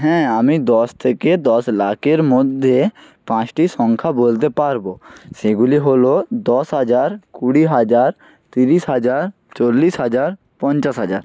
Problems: none marked